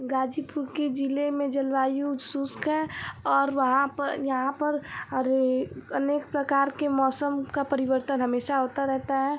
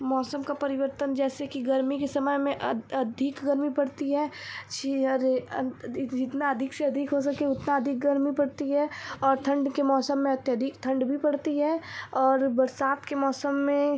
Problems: none marked